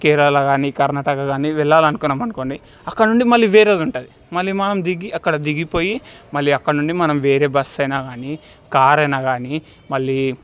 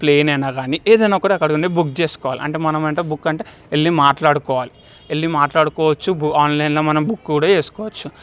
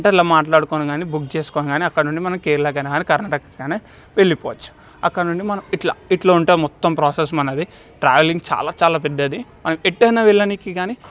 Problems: background sounds at intervals